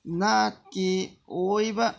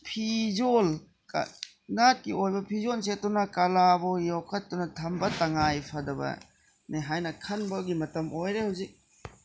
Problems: background sounds at intervals